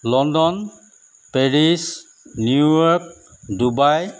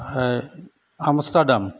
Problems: none marked